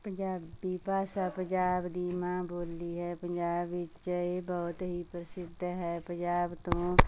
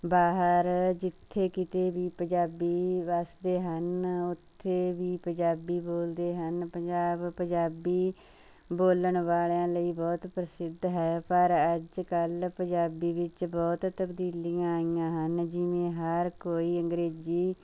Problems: none marked